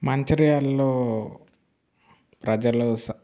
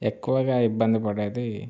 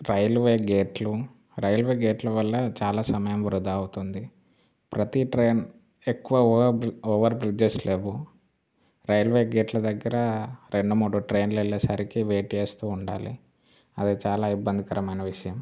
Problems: constant background noise